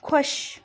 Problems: none marked